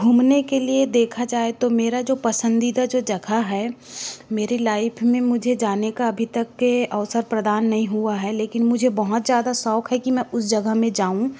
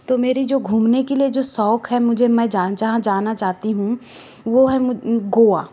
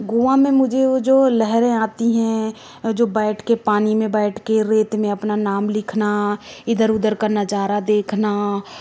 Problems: none marked